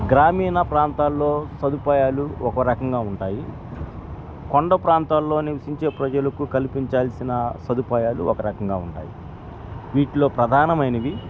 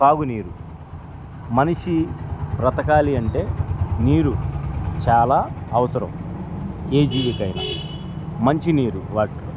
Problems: background sounds at intervals